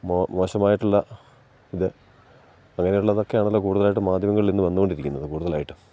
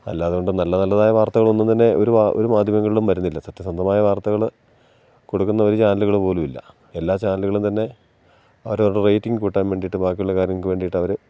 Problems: none marked